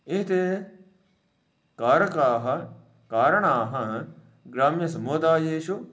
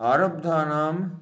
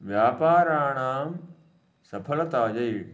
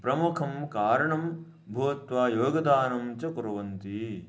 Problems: none marked